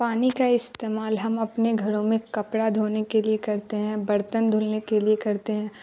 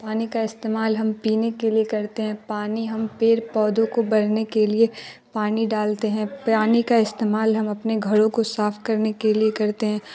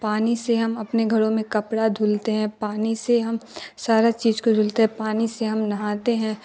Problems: constant background noise